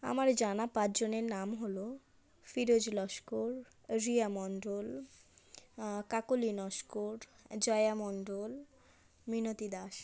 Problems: background conversations at intervals